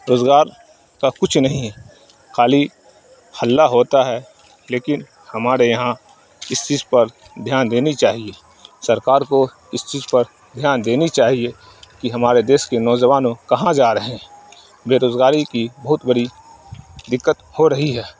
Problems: none marked